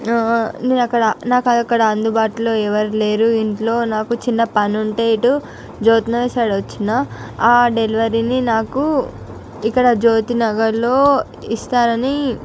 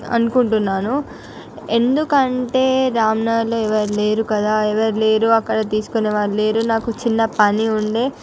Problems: none marked